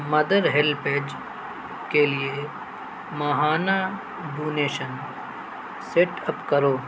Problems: constant background noise